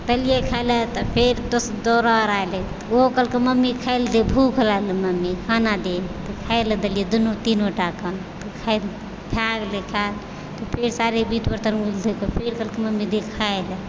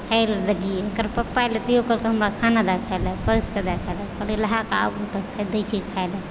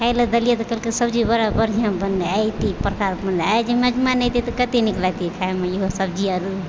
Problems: echo